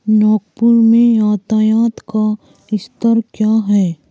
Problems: constant background noise, background conversations at intervals